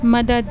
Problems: background sounds at intervals